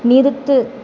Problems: constant background noise